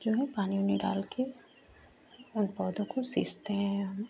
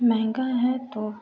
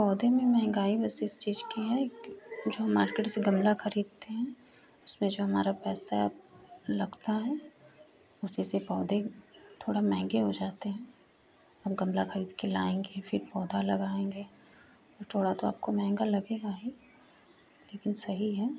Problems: constant background noise